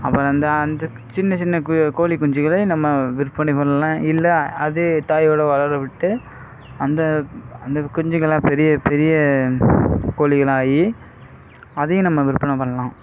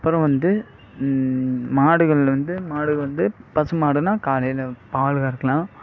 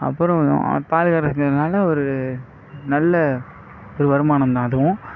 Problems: background sounds at intervals